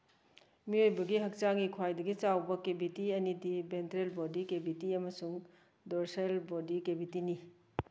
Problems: none marked